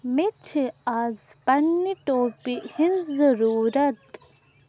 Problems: background sounds at intervals